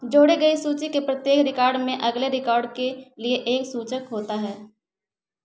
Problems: background sounds at intervals